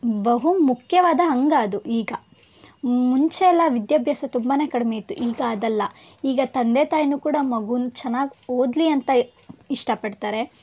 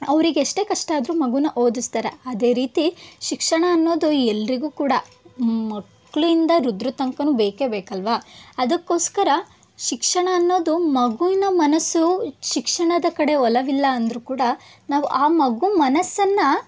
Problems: background sounds at intervals